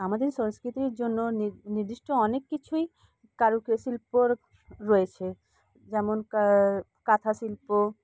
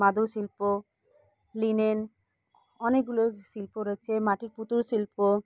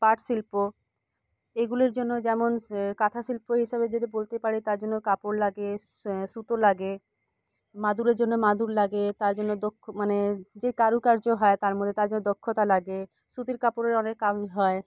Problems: none marked